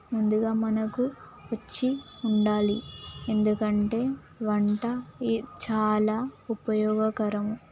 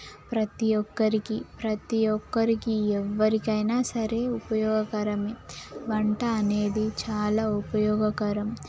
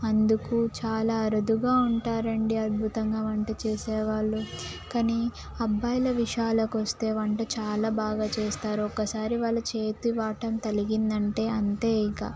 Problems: constant background noise